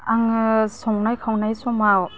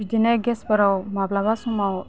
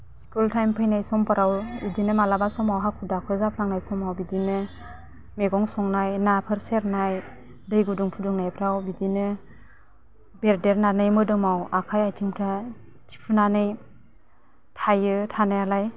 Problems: none marked